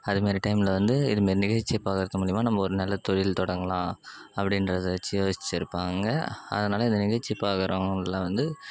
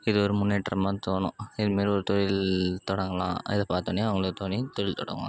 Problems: background sounds at intervals